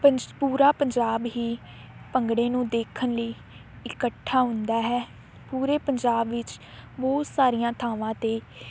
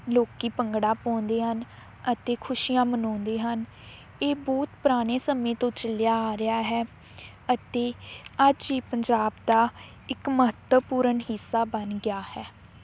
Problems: none marked